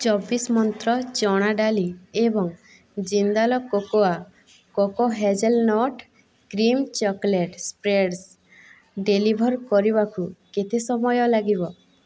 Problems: none marked